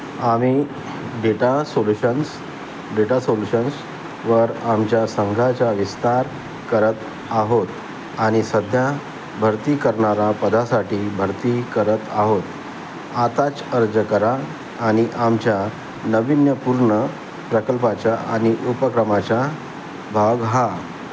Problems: constant background noise